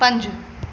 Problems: constant background noise